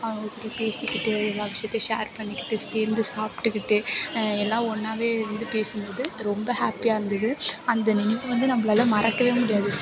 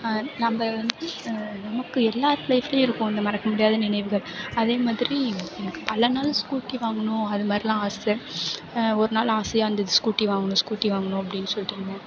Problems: background sounds at intervals